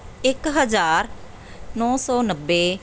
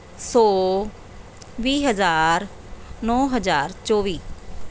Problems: none marked